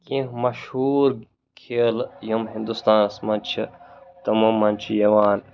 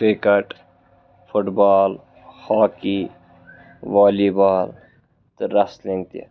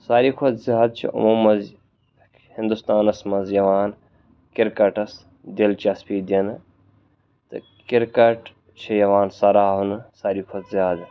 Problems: background sounds at intervals